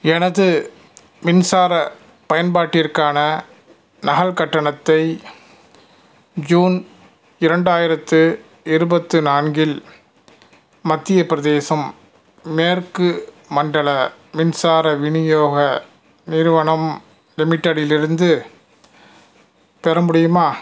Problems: none marked